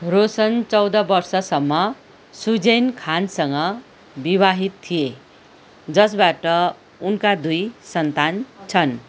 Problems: none marked